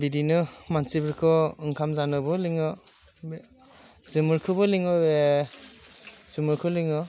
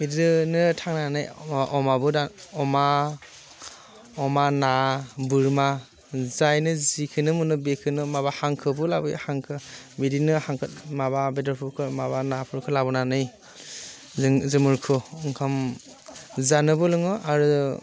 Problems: constant background noise